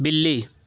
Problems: background sounds at intervals